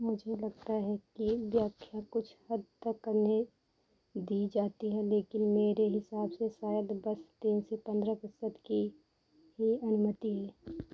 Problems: none marked